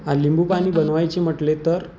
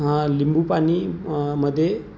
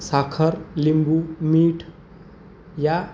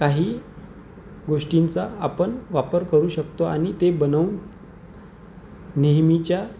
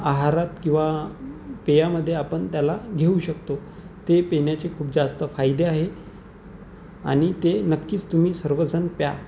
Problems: none marked